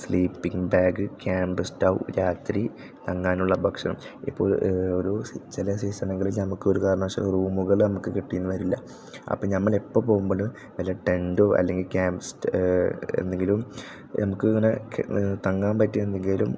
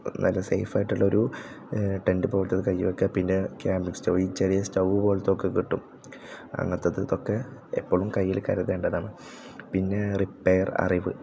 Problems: low volume